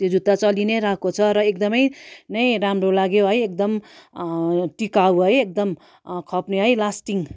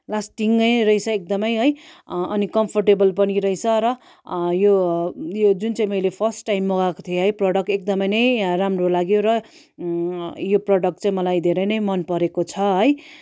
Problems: none marked